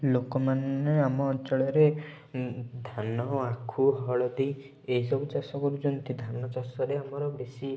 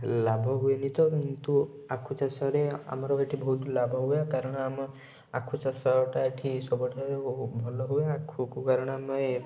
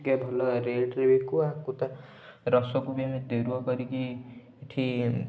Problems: background sounds at intervals